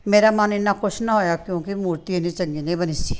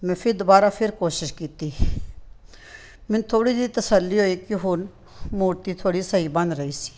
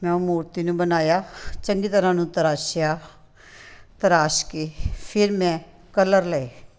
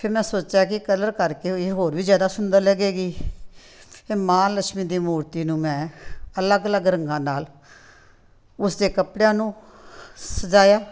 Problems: background sounds at intervals